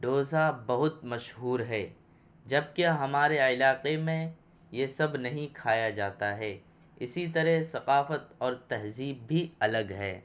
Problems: none marked